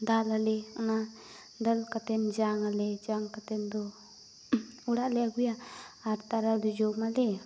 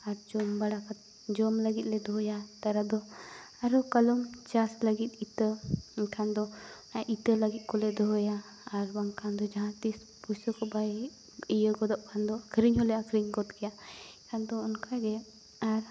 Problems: none marked